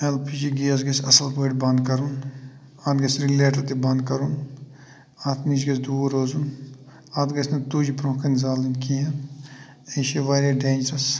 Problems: none marked